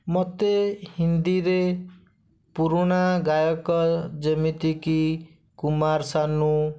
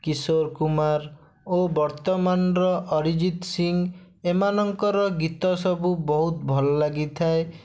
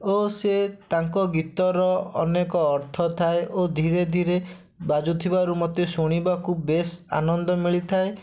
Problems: none marked